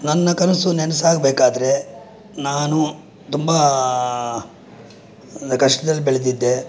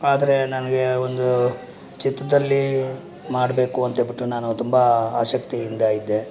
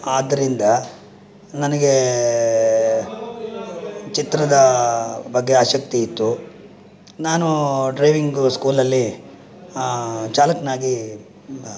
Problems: background sounds at intervals